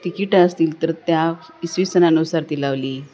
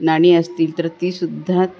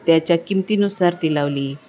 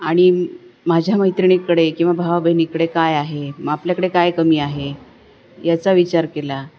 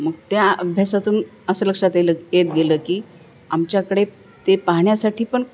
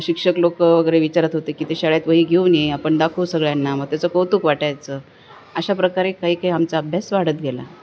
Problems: none marked